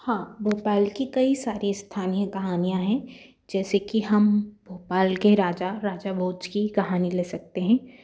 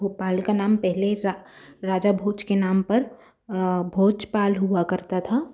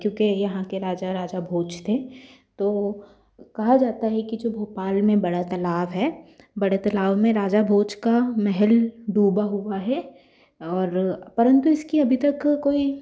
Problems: constant background noise